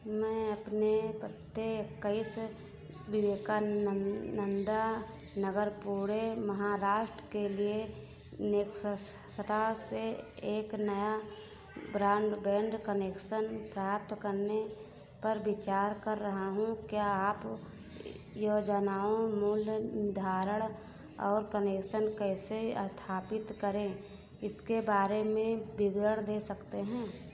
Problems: constant background noise